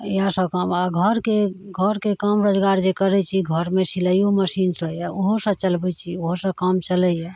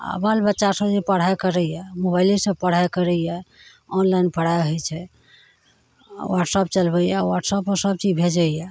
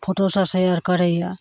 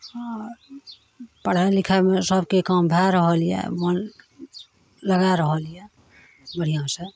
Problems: none marked